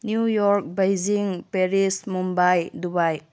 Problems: low volume